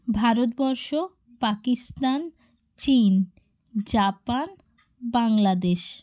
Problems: background sounds at intervals